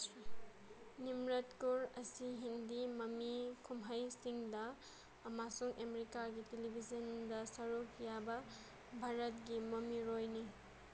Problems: constant background noise